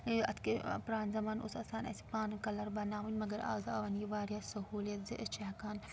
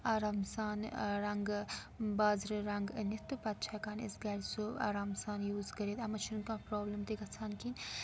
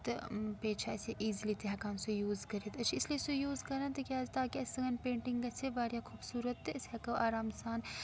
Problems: background sounds at intervals